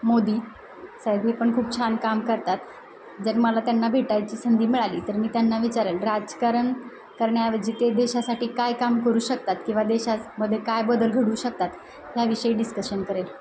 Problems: none marked